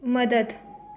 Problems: background conversations at intervals